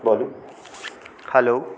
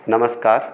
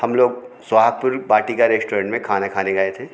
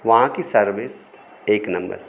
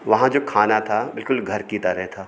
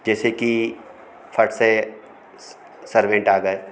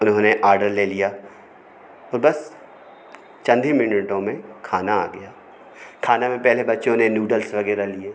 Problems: constant background noise, continuous background conversations